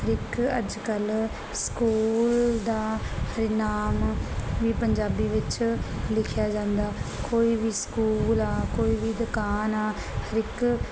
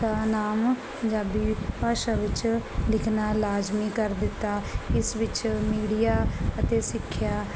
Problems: none marked